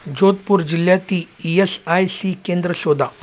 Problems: none marked